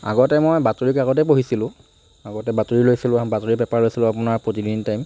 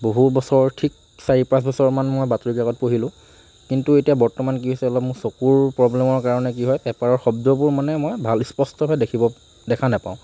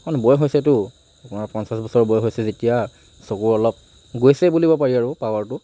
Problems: none marked